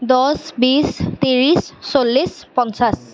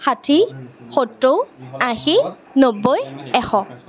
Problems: background conversations at intervals